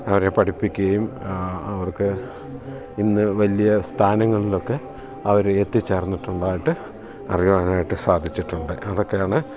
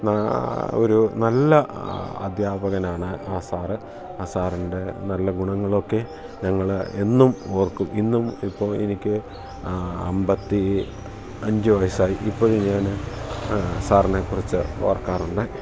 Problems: constant background noise